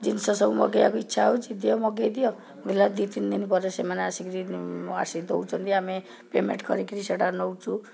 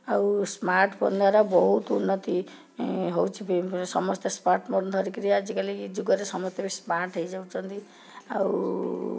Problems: background conversations at intervals